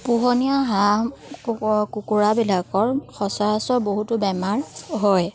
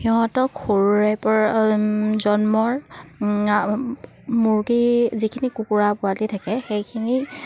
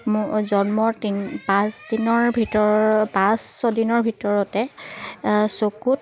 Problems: none marked